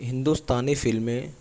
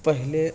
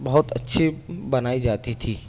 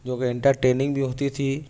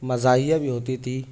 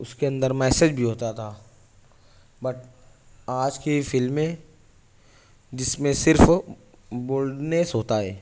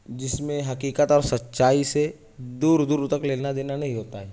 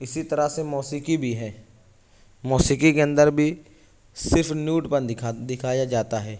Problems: none marked